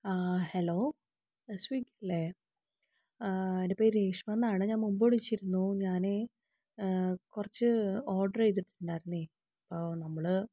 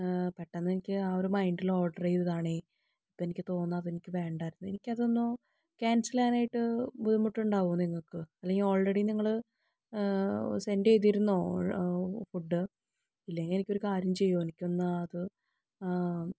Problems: low volume